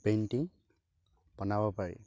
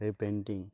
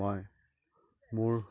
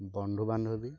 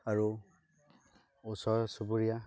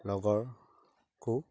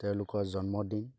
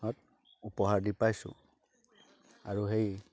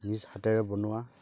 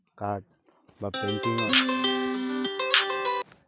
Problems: constant background noise, continuous background conversations